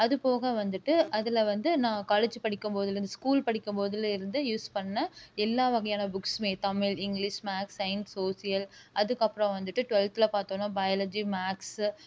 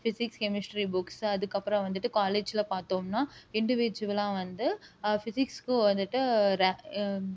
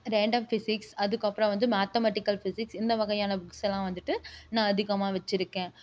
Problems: none marked